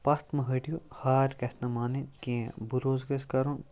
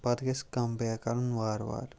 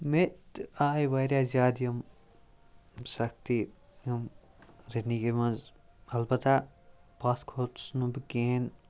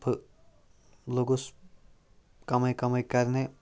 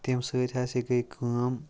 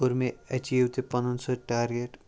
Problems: none marked